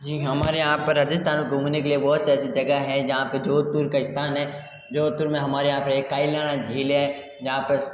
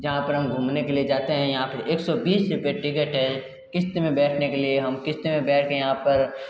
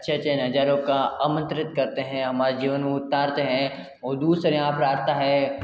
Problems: echo